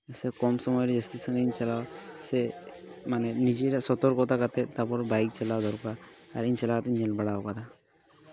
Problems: background sounds at intervals, continuous background conversations